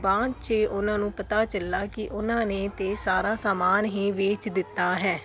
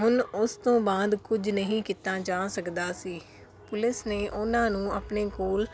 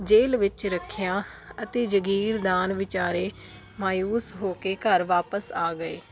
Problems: constant background noise